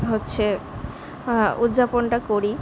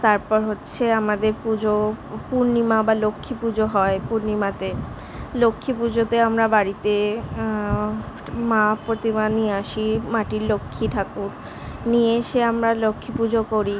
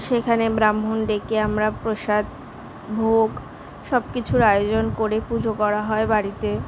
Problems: constant background noise, background conversations at intervals